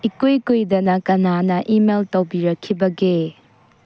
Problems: low volume